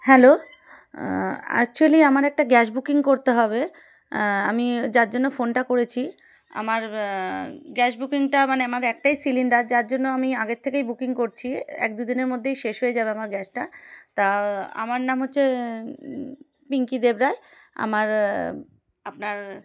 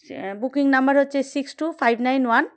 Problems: background sounds at intervals